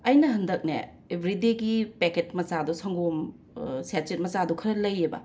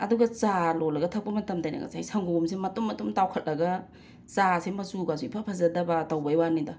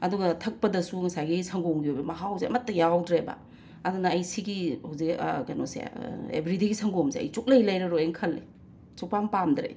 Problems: none marked